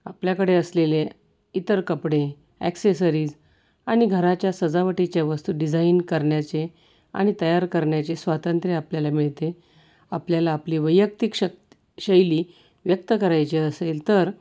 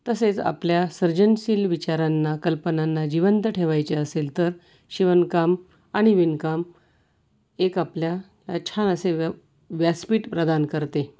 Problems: none marked